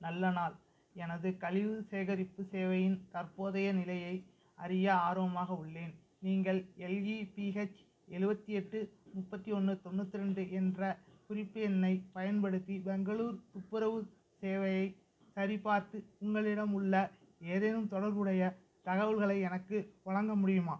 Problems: none marked